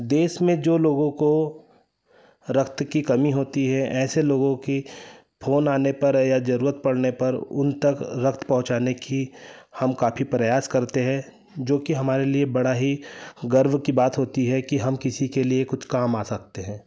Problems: none marked